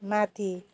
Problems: none marked